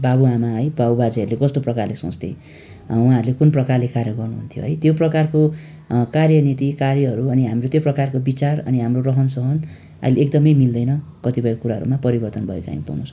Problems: none marked